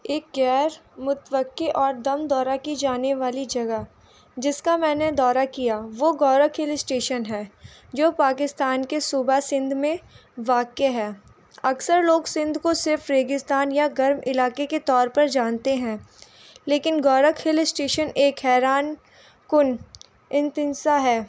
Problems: none marked